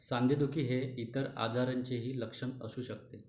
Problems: background sounds at intervals